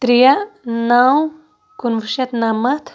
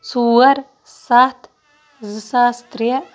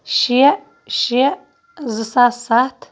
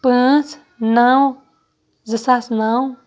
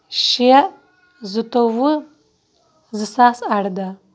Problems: background sounds at intervals